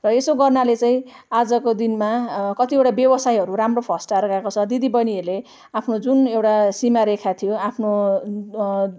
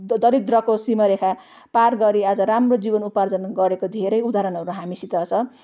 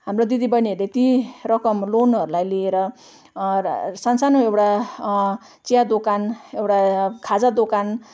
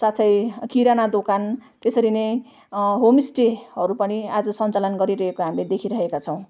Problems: none marked